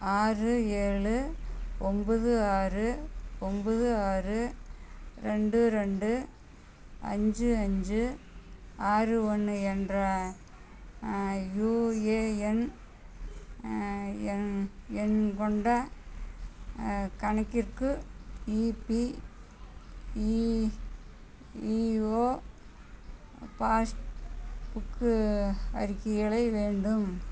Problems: constant background noise